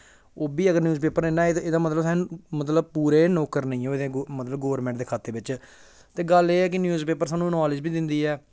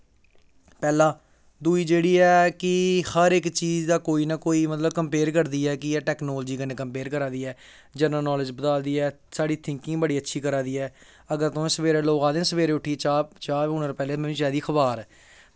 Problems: none marked